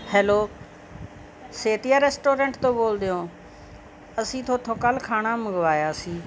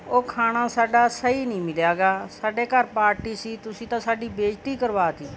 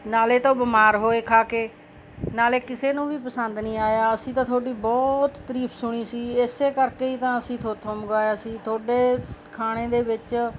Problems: background sounds at intervals